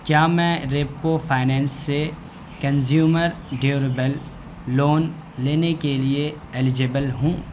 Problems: none marked